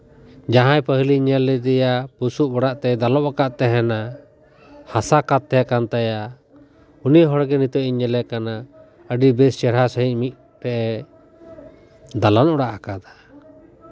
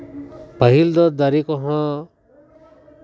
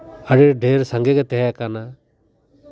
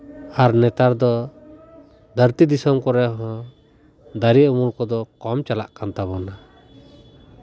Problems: continuous background conversations